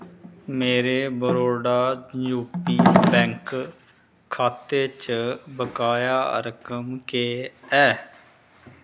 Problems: none marked